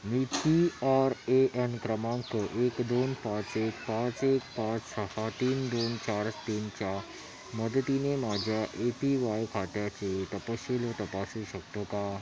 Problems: none marked